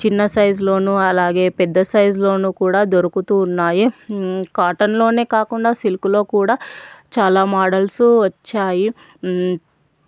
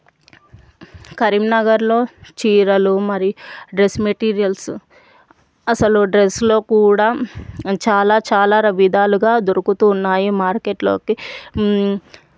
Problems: none marked